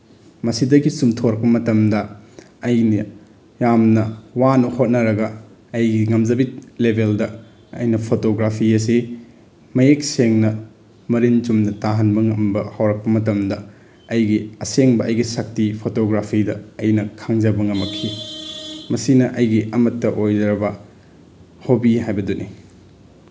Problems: background sounds at intervals